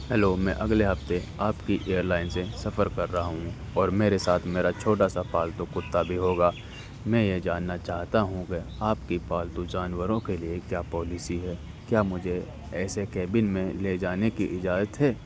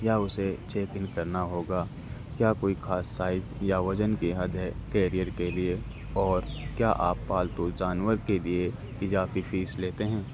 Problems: constant background noise